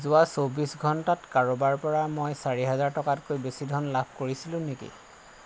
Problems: constant background noise